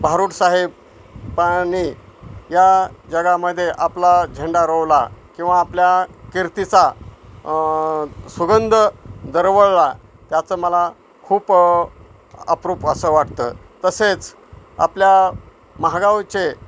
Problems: constant background noise